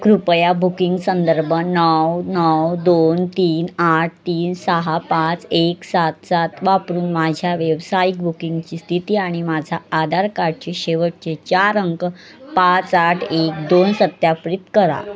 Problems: constant background noise, continuous background conversations